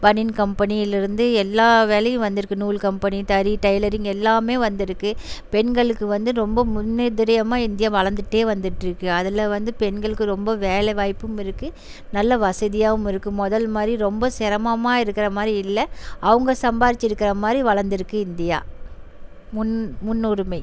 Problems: background sounds at intervals